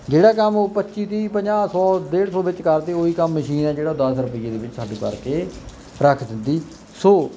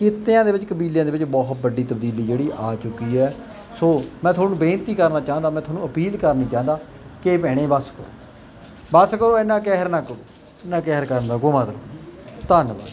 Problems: none marked